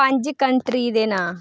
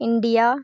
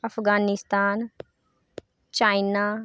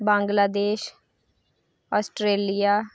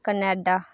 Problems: none marked